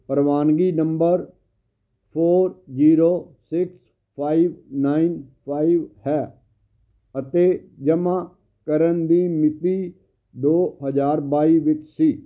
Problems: constant background noise